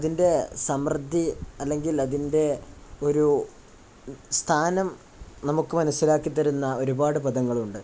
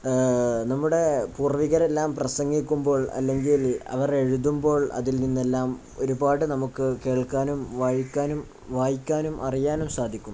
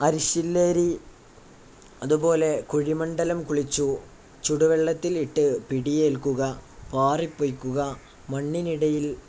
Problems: none marked